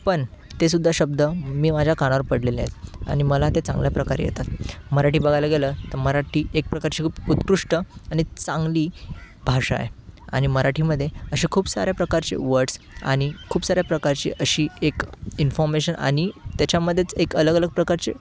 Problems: constant background noise, background conversations at intervals